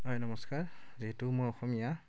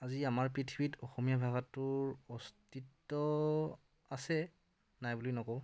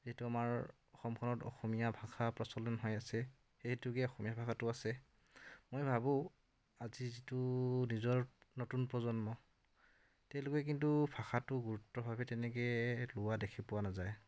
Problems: none marked